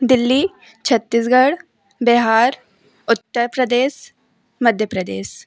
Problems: background conversations at intervals